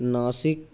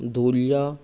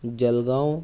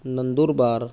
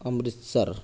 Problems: none marked